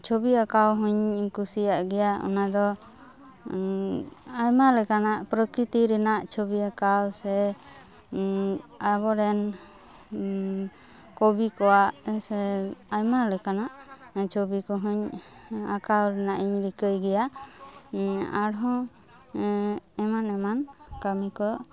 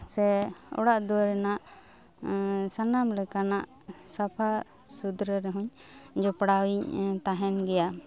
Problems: constant background noise